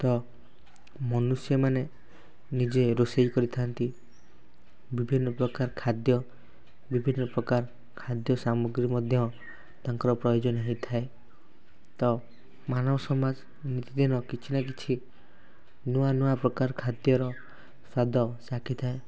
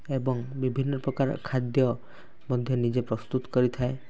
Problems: none marked